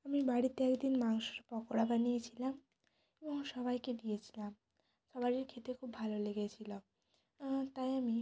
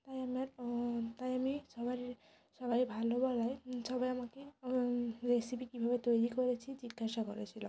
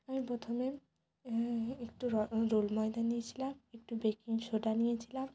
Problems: constant background noise